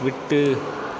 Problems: constant background noise